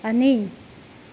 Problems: constant background noise